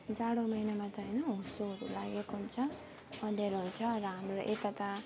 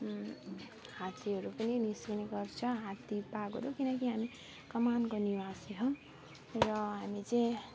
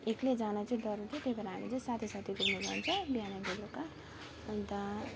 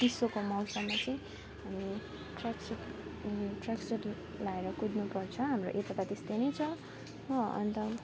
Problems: constant background noise, background conversations at intervals, low volume